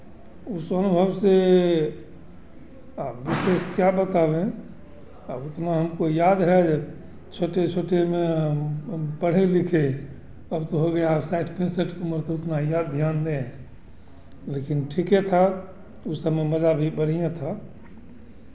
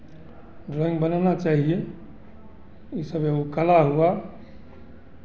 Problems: constant background noise